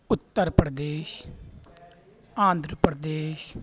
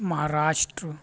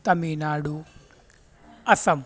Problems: background sounds at intervals